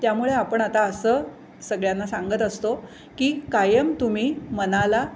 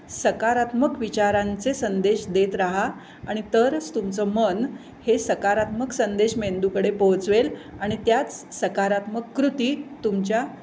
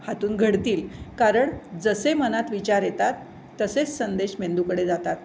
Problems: none marked